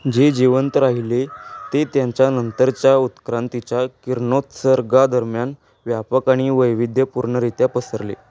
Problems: background sounds at intervals